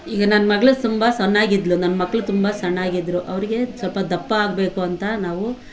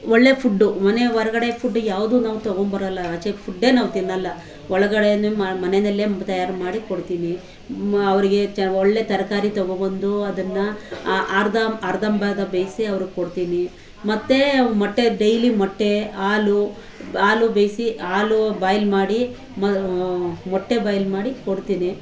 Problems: constant background noise